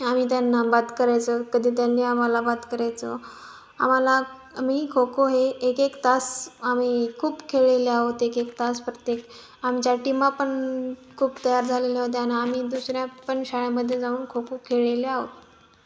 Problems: background sounds at intervals